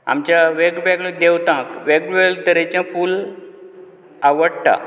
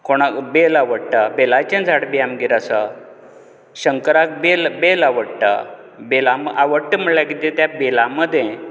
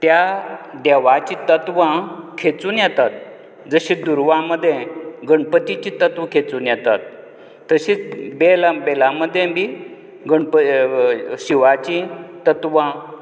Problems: background sounds at intervals